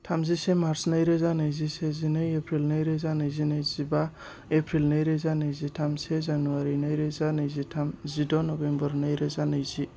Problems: none marked